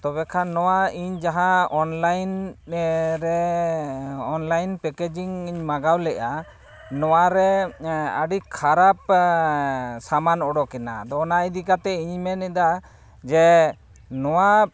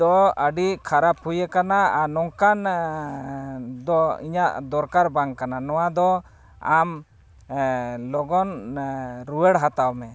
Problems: none marked